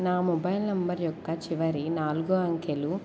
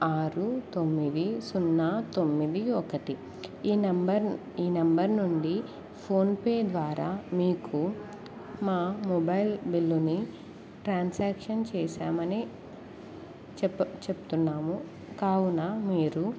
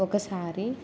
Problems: constant background noise